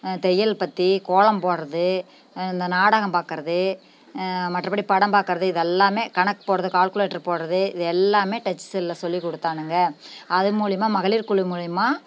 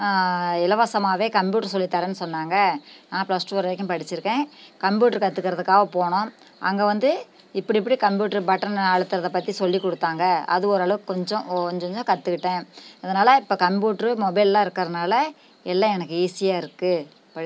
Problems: none marked